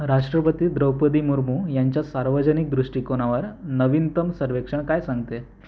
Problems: background sounds at intervals